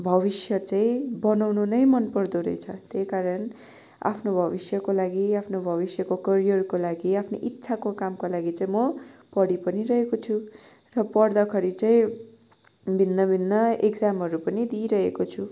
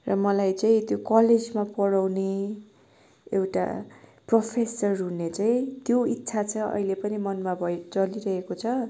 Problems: none marked